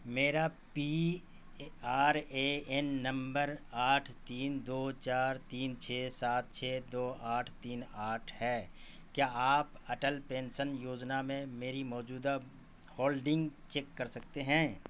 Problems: constant background noise